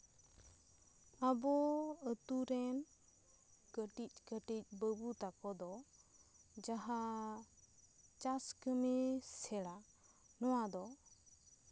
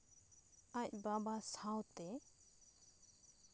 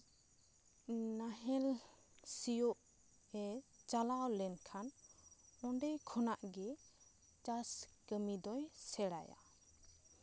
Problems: none marked